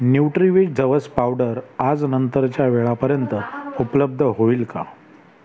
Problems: constant background noise, continuous background conversations